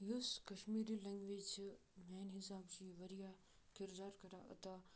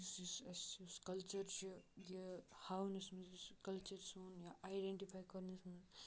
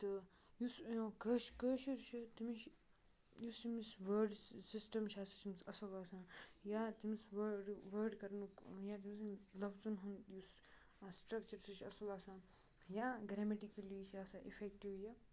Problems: low volume